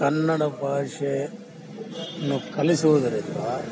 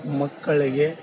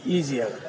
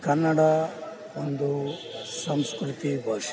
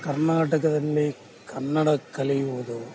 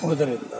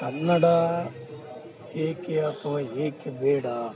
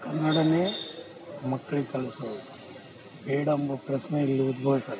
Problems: background sounds at intervals